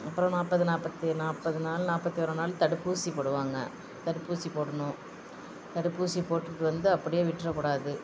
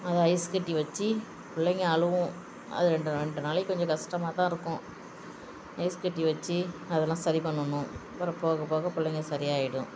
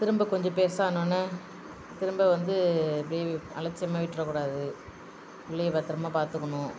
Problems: constant background noise